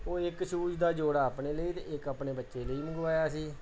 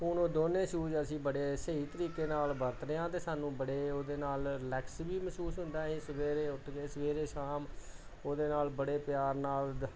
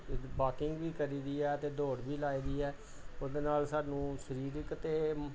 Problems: background conversations at intervals